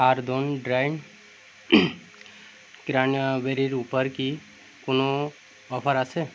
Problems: none marked